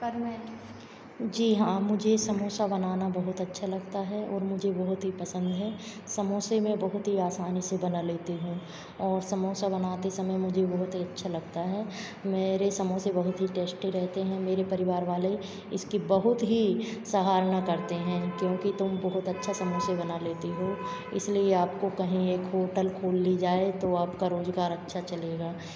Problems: constant background noise, background conversations at intervals